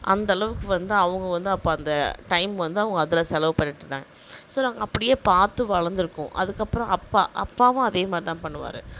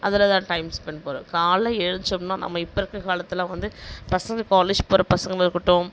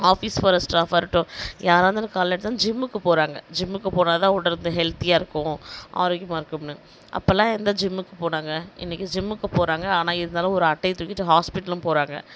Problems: none marked